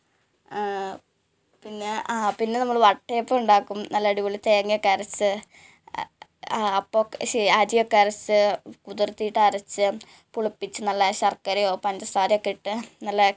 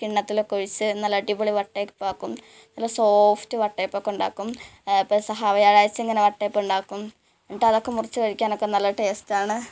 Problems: background sounds at intervals